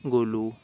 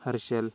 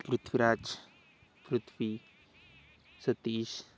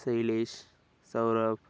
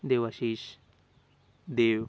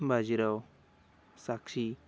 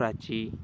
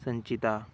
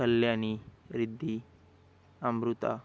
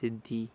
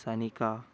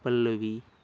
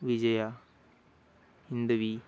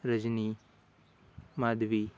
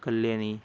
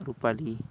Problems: background sounds at intervals